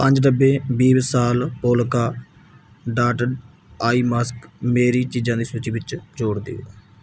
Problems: background sounds at intervals